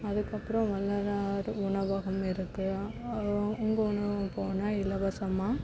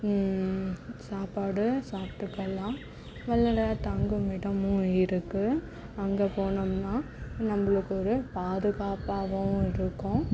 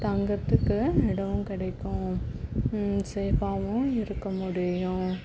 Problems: background sounds at intervals